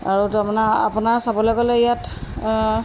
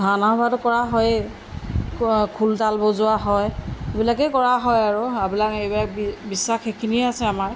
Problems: background sounds at intervals